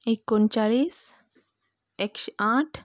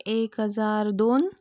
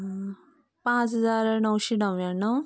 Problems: none marked